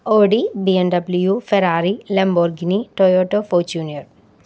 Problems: none marked